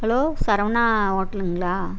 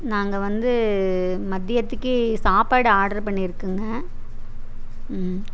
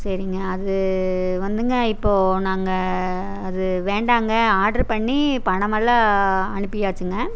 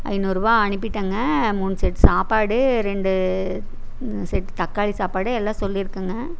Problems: none marked